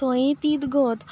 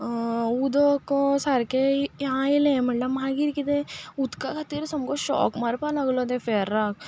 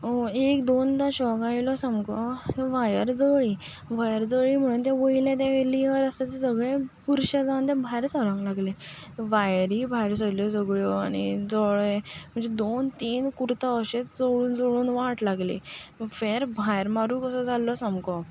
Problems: none marked